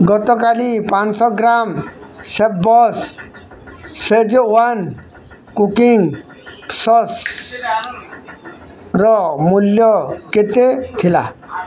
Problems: constant background noise